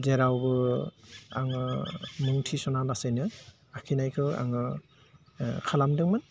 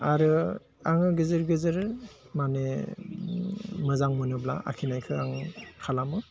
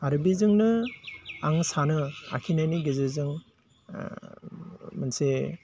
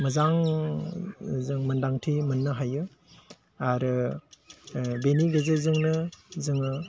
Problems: low volume